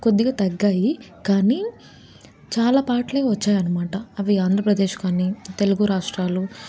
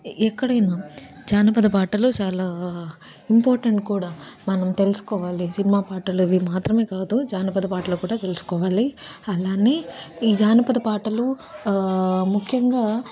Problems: none marked